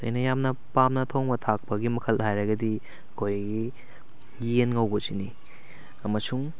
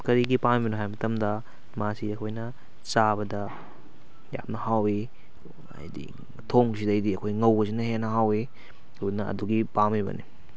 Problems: none marked